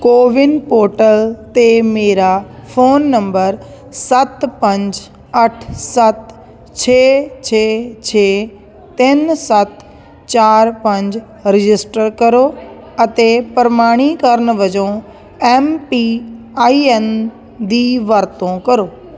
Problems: constant background noise